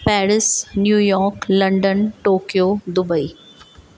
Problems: constant background noise